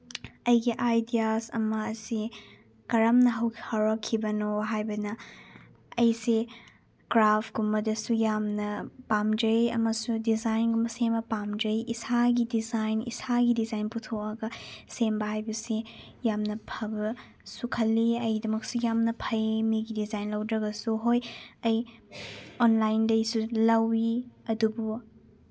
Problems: none marked